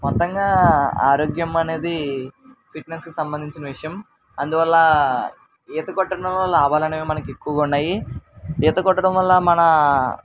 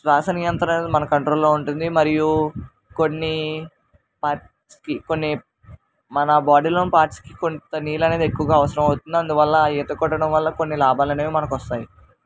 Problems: constant background noise